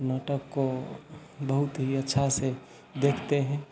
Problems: none marked